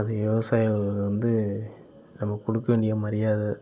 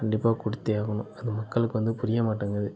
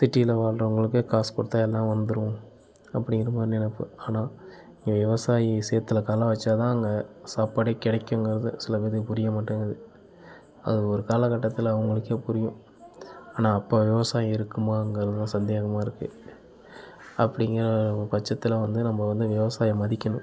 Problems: continuous background conversations